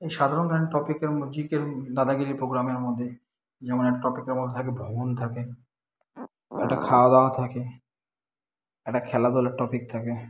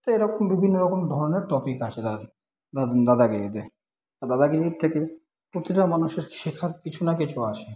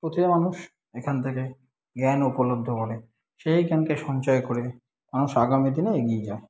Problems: background sounds at intervals